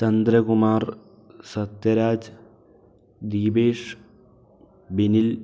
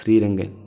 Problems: none marked